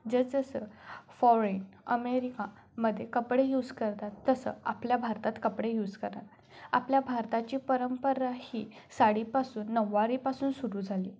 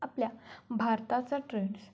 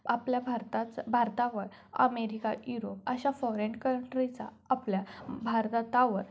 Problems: none marked